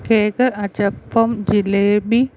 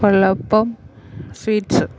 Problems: none marked